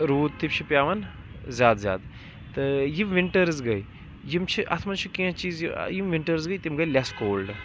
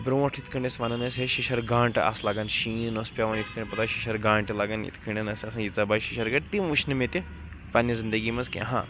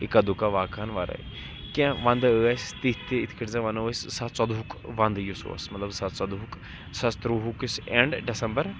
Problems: constant background noise, background conversations at intervals